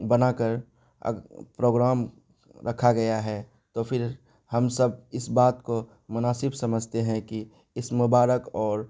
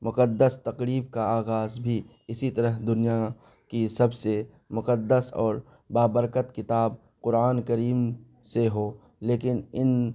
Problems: constant background noise